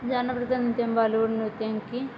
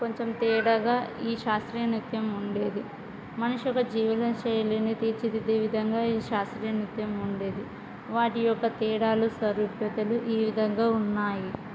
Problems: background conversations at intervals